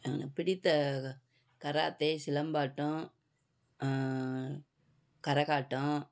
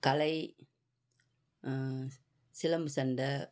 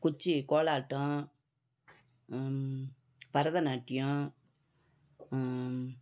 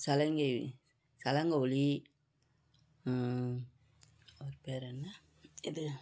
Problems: background conversations at intervals